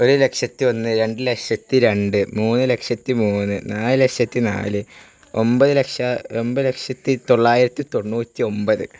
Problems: constant background noise